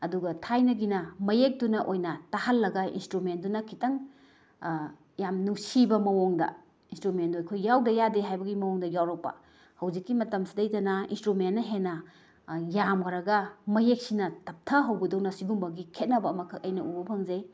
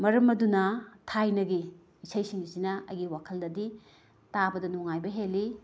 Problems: none marked